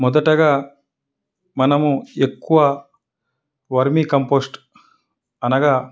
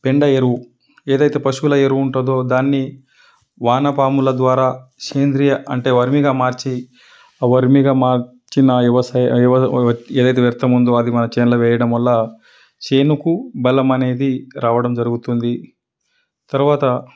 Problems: none marked